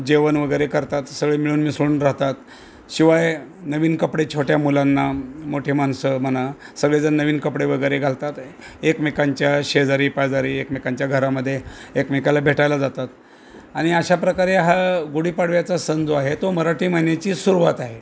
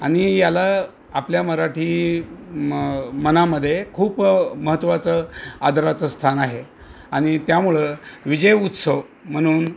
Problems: constant background noise